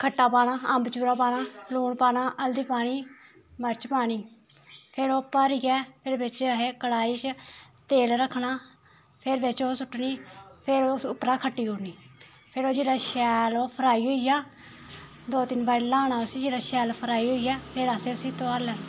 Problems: constant background noise